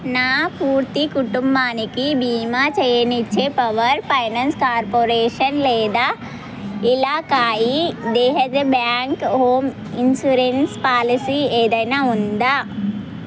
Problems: constant background noise